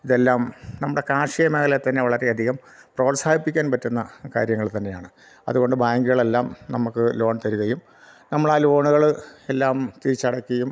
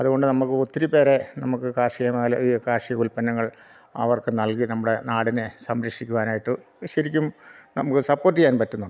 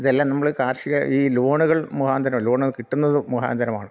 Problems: none marked